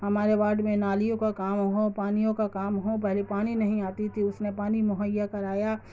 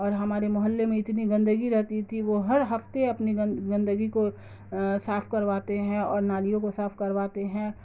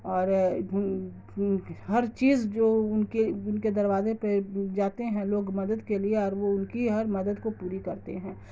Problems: constant background noise